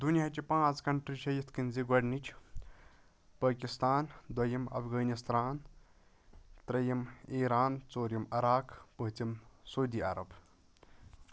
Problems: background sounds at intervals